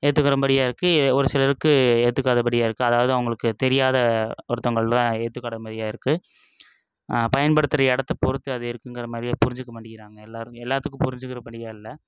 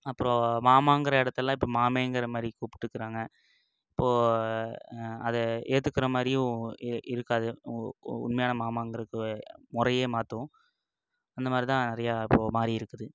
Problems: none marked